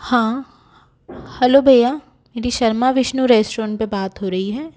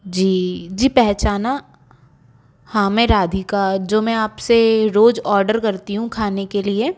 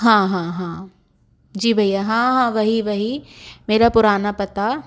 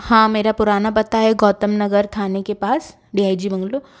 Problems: none marked